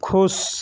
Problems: none marked